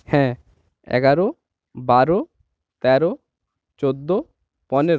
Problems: none marked